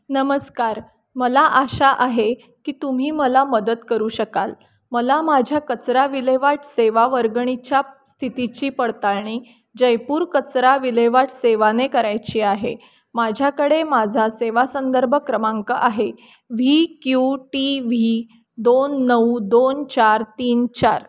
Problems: background sounds at intervals